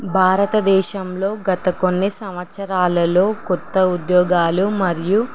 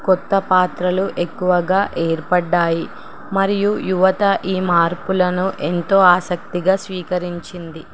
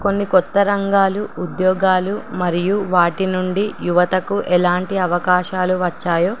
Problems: none marked